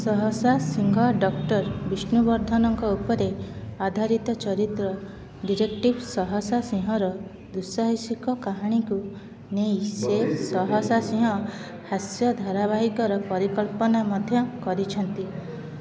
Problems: constant background noise, continuous background conversations